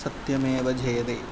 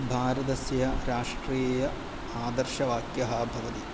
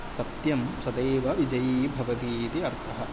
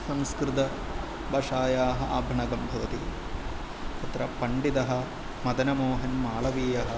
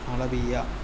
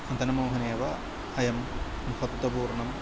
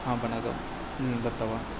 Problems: none marked